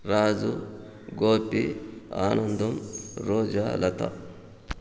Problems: background sounds at intervals